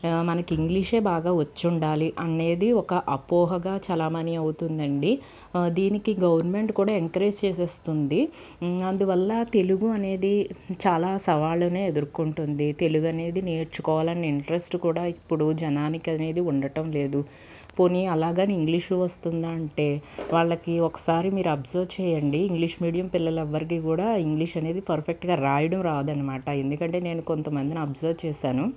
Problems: constant background noise, background conversations at intervals